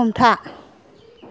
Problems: background conversations at intervals